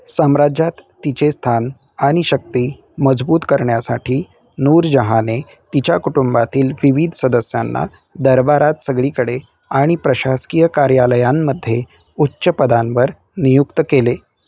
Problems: background sounds at intervals